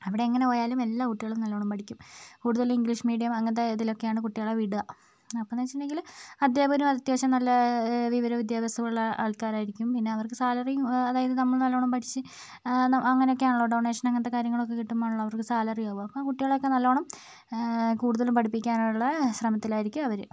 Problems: low volume